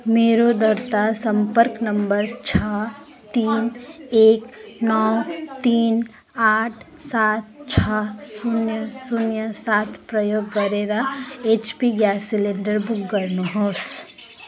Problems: constant background noise